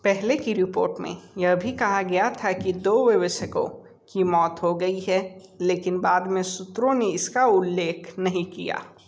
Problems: constant background noise